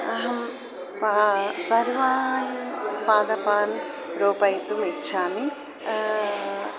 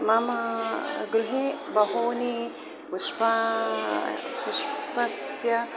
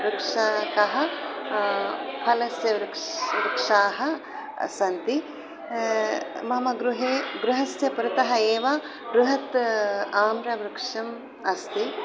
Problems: constant background noise